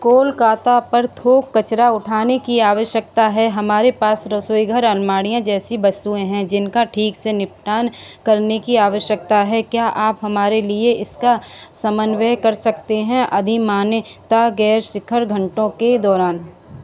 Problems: none marked